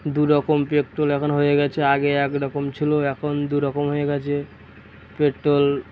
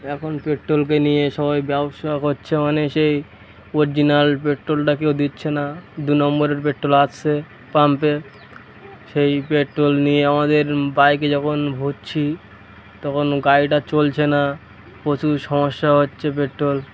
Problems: constant background noise